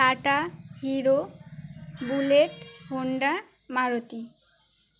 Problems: constant background noise